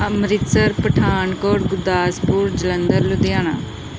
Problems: constant background noise